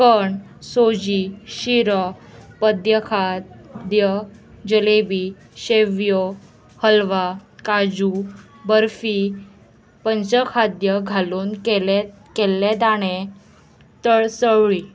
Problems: constant background noise, background conversations at intervals